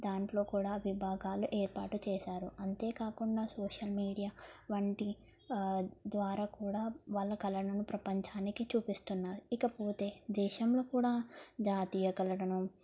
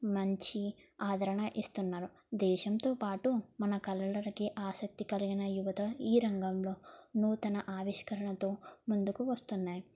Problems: low volume